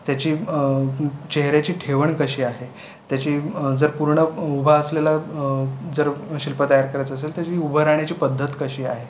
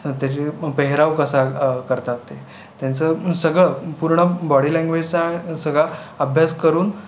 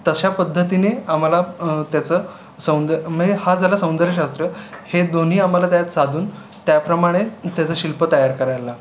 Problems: constant background noise, continuous background conversations